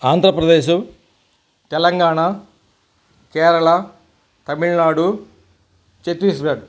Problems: none marked